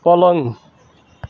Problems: none marked